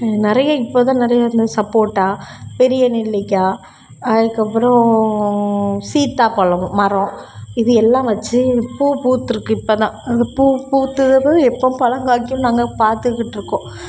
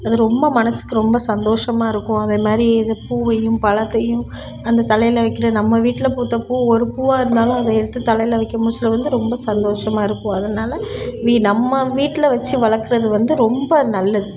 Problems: none marked